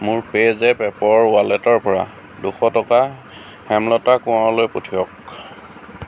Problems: constant background noise